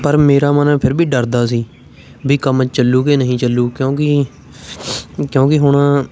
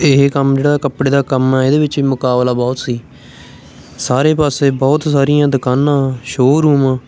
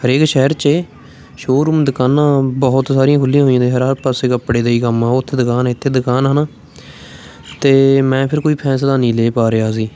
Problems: constant background noise, continuous background conversations